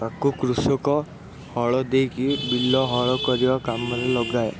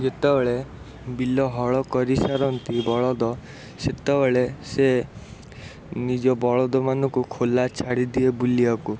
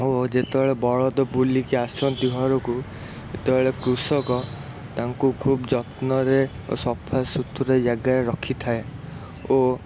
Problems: constant background noise